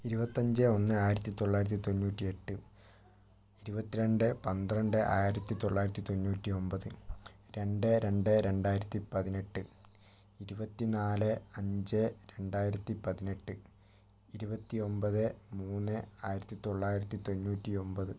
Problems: low volume